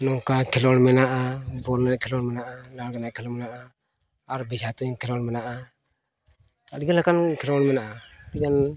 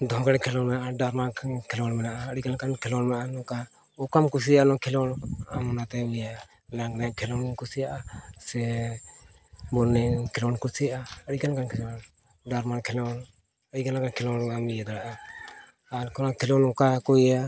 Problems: constant background noise, continuous background conversations, low volume